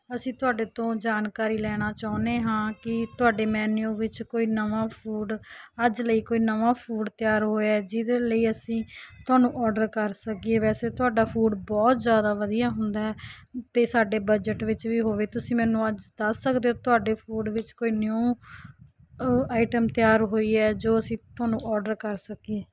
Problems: none marked